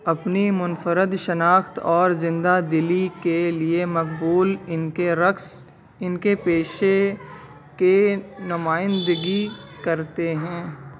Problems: constant background noise